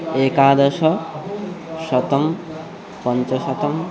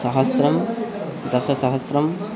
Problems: constant background noise